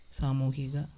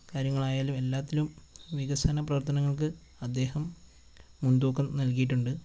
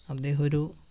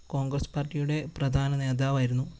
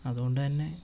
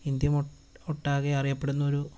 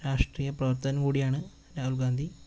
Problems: constant background noise